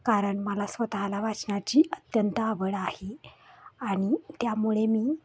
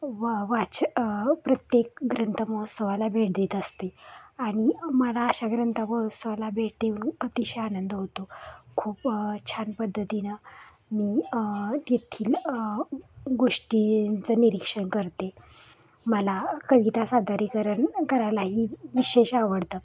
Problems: none marked